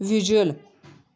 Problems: background sounds at intervals, background conversations at intervals